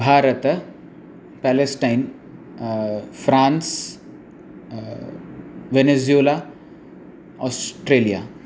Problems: constant background noise